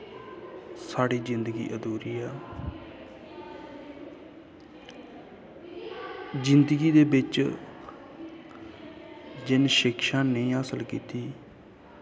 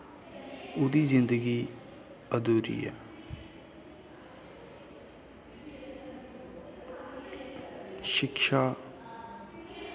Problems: constant background noise, background conversations at intervals